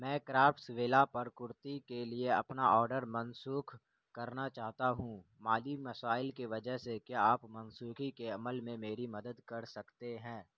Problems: constant background noise, low volume